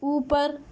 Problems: none marked